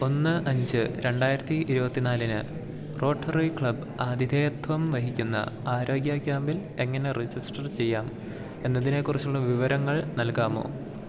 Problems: none marked